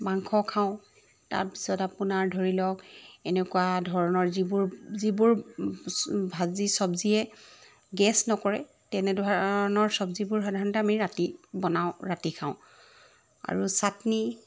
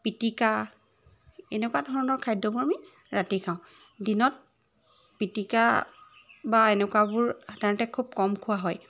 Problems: background sounds at intervals